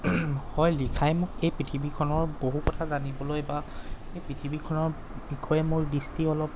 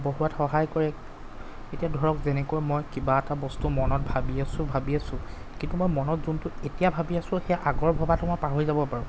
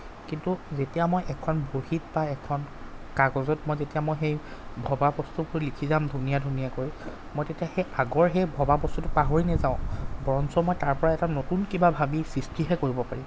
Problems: background sounds at intervals